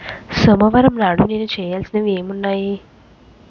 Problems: constant background noise